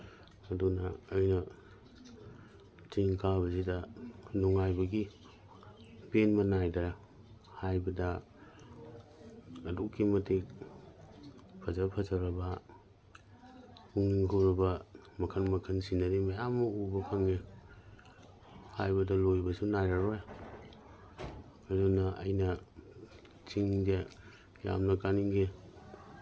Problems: none marked